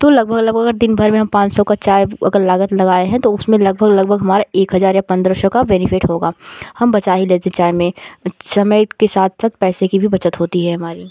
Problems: constant background noise